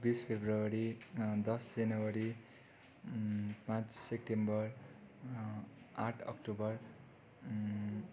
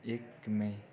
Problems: none marked